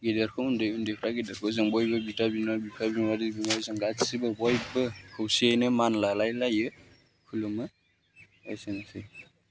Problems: low volume